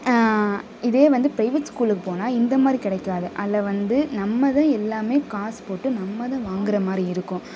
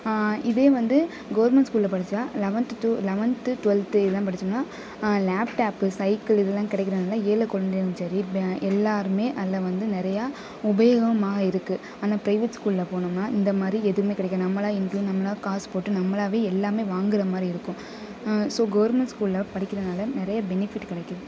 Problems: constant background noise